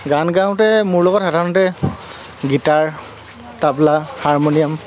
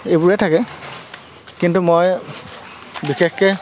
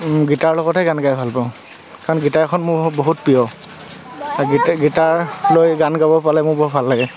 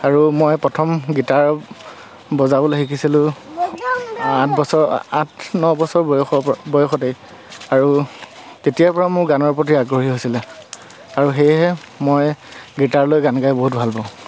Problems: constant background noise